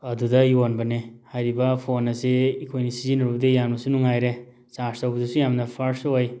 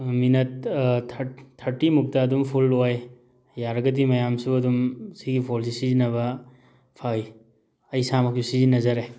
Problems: none marked